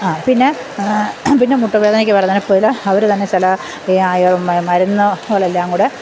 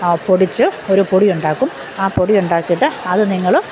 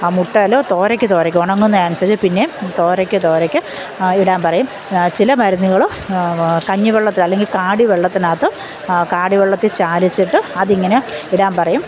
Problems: none marked